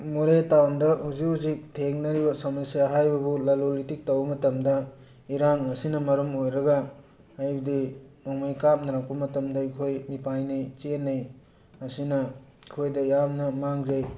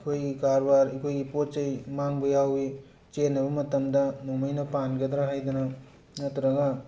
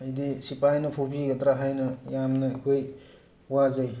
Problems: background sounds at intervals